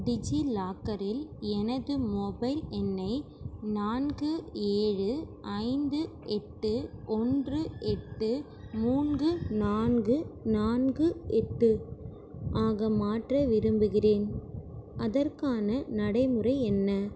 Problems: background sounds at intervals